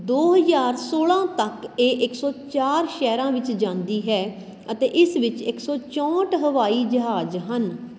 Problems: constant background noise